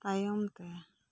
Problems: low volume